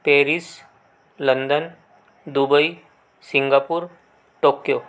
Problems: background sounds at intervals